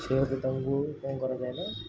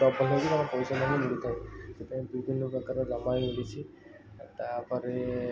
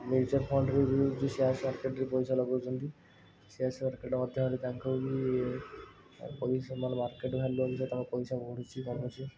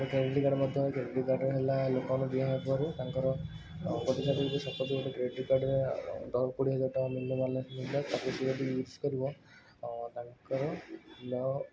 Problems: none marked